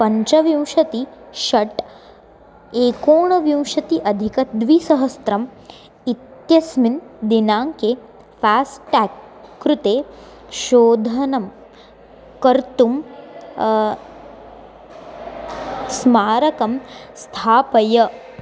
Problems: constant background noise